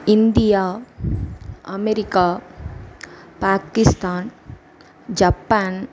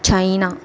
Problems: echo